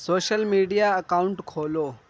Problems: background sounds at intervals